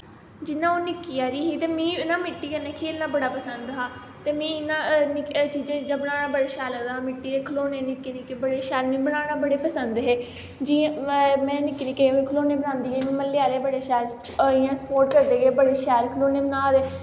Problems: constant background noise